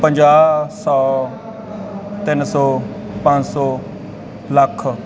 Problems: background conversations at intervals